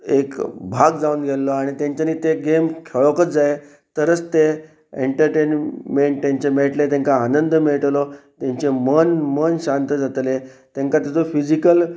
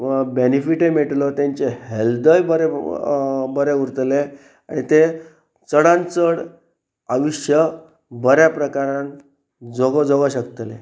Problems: background sounds at intervals